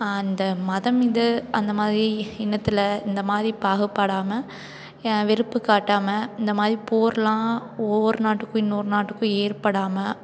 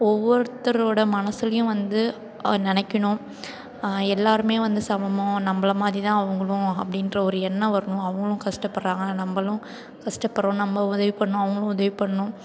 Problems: continuous background conversations